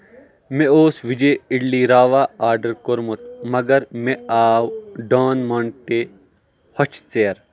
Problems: background sounds at intervals